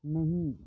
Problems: low volume